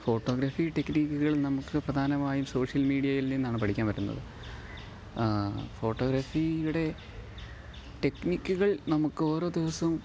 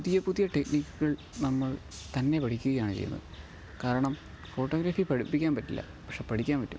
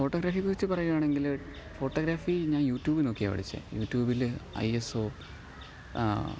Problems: none marked